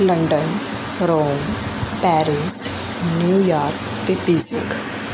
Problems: constant background noise